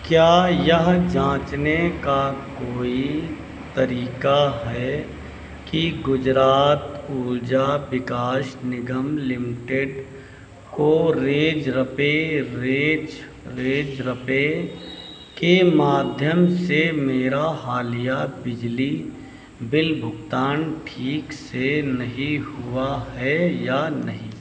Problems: none marked